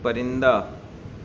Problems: none marked